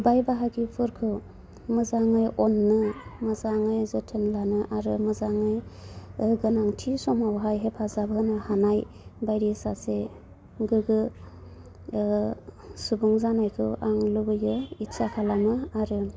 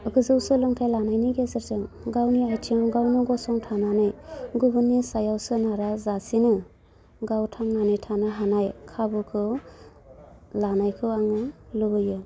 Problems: low volume